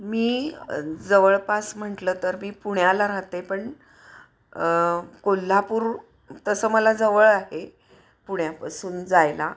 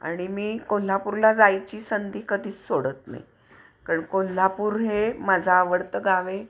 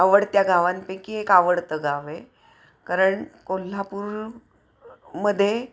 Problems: none marked